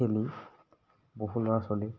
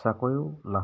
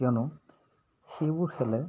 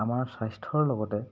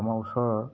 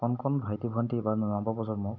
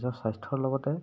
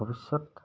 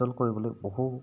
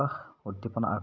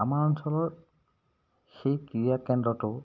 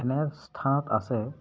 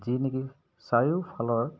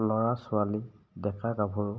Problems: background sounds at intervals